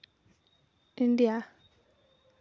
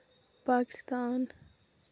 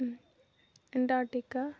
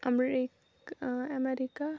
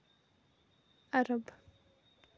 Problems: background sounds at intervals, low volume